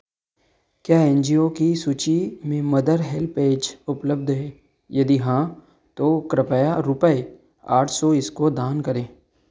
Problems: constant background noise